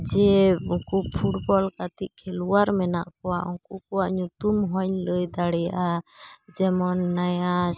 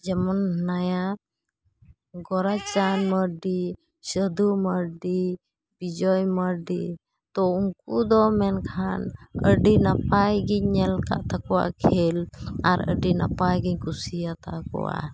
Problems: constant background noise